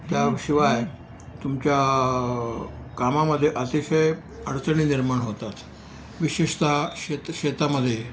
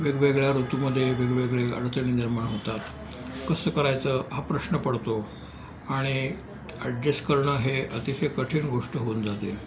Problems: background sounds at intervals